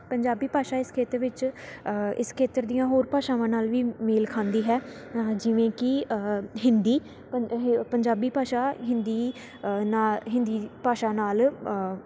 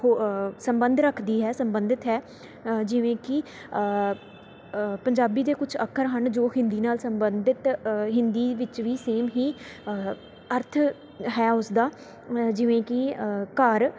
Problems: constant background noise